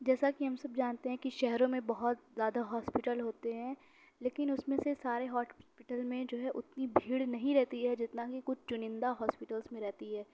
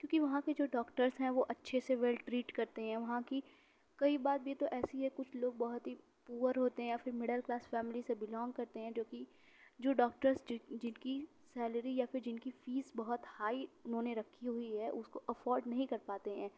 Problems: none marked